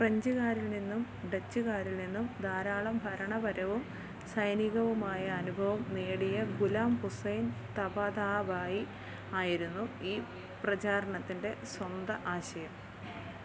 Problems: low volume